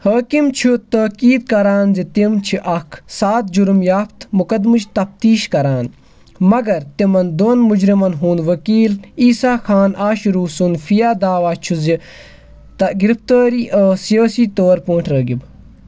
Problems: none marked